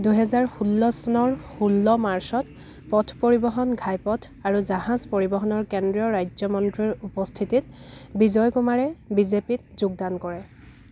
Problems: background sounds at intervals, background conversations at intervals